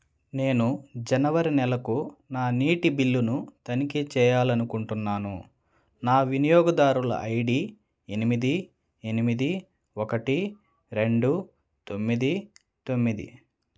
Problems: none marked